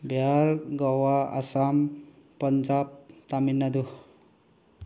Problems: none marked